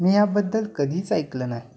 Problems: none marked